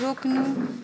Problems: background sounds at intervals